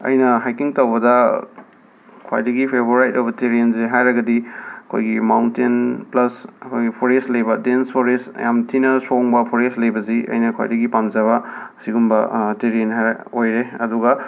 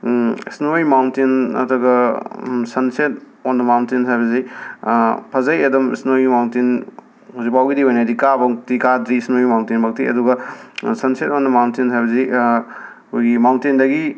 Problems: none marked